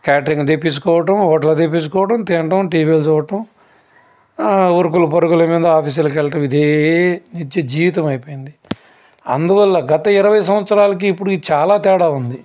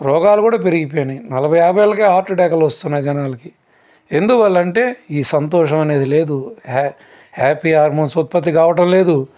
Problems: constant background noise